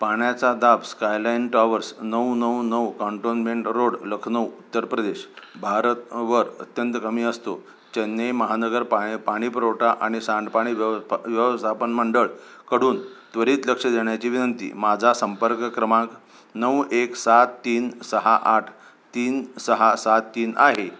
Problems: none marked